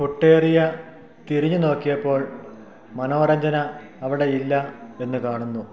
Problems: none marked